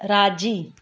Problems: none marked